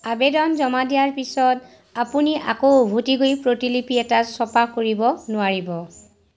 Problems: none marked